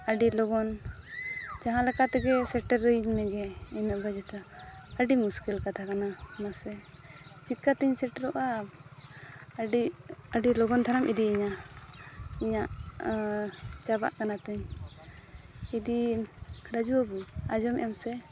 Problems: background sounds at intervals, continuous background conversations